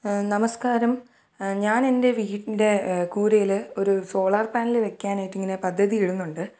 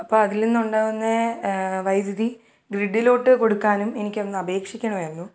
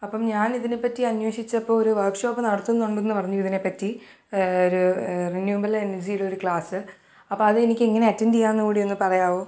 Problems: none marked